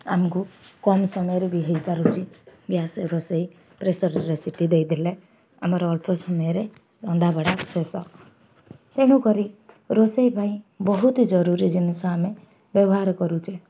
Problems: none marked